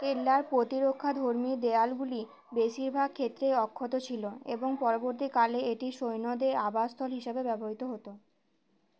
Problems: none marked